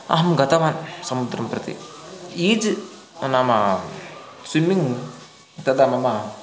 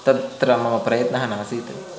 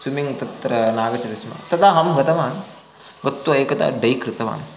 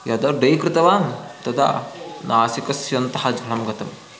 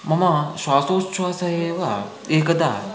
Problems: constant background noise, continuous background conversations